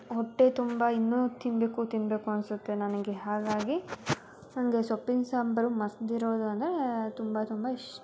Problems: constant background noise, continuous background conversations